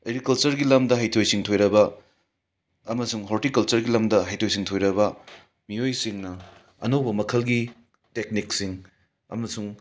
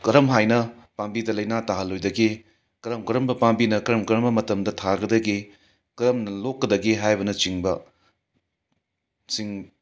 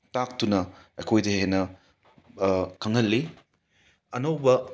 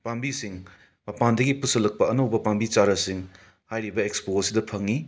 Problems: background sounds at intervals